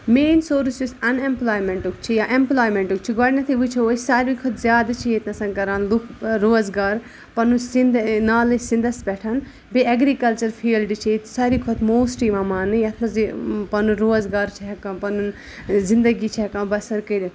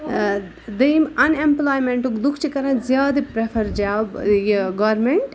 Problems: background sounds at intervals